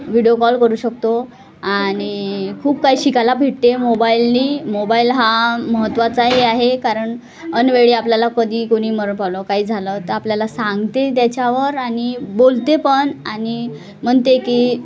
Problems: constant background noise, continuous background conversations